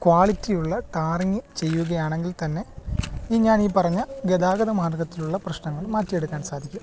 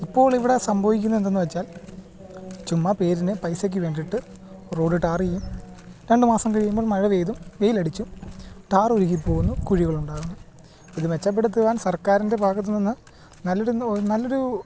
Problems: background sounds at intervals